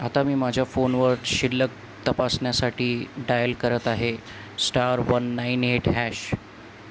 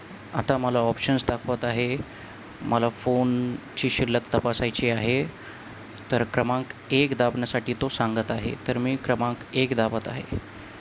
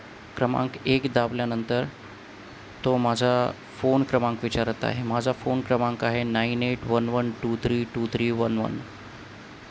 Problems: none marked